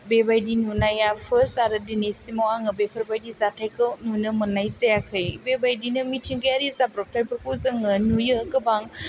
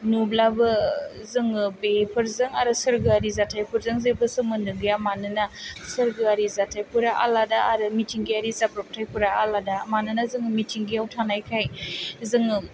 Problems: none marked